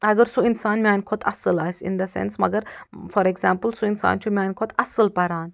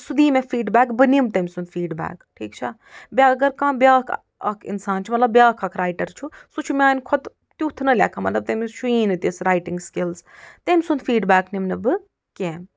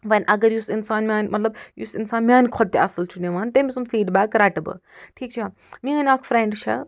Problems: none marked